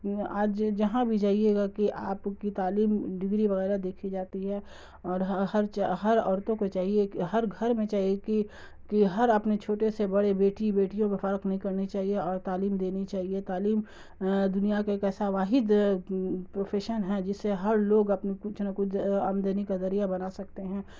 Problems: constant background noise